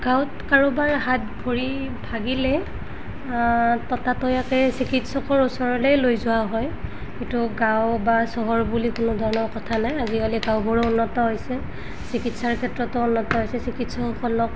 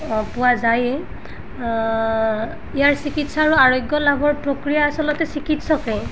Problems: background sounds at intervals